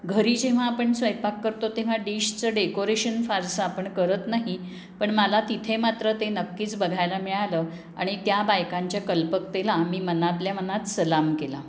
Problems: constant background noise